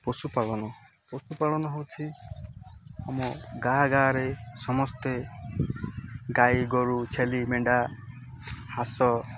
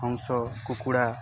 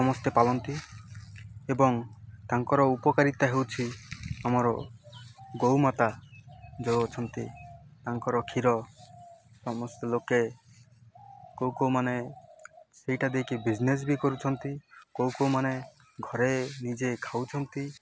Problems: constant background noise